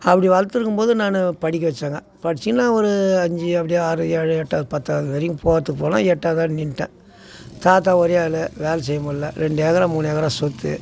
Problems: none marked